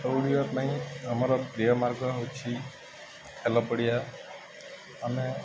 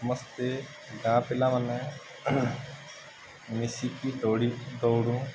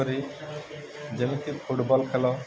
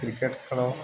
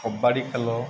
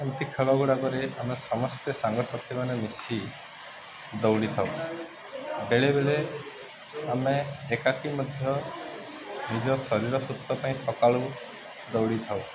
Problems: constant background noise, continuous background conversations